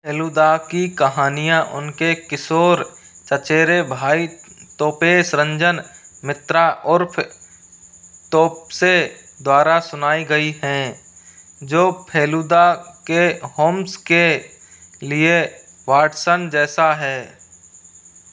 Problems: constant background noise